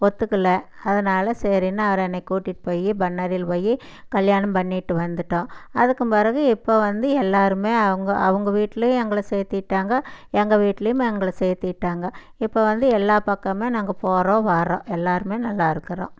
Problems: none marked